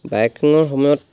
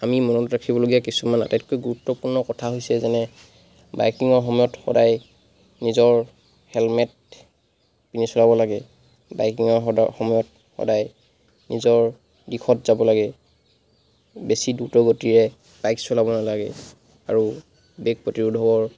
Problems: constant background noise